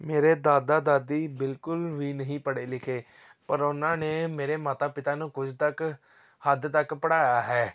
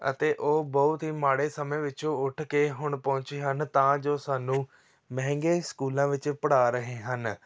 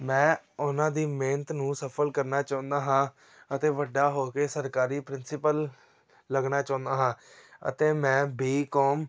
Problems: none marked